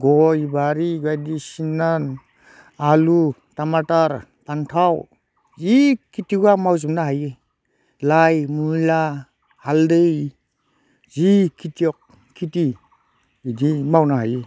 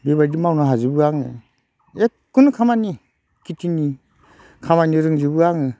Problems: none marked